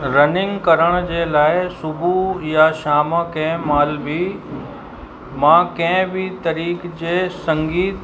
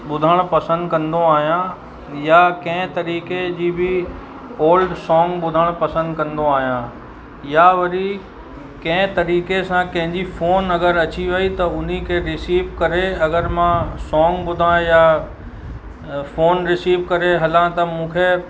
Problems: constant background noise